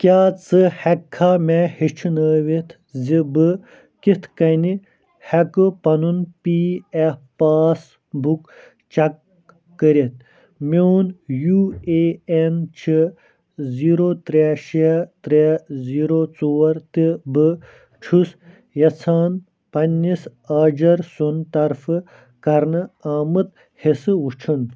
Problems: none marked